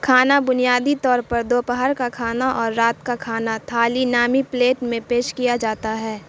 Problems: none marked